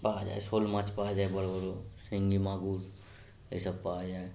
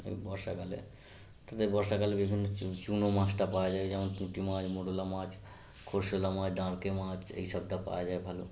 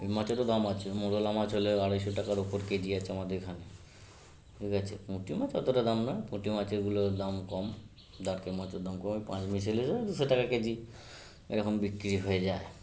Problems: constant background noise